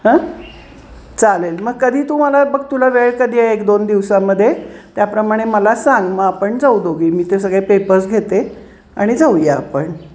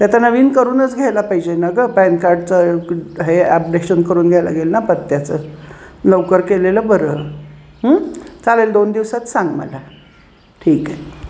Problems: none marked